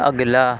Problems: constant background noise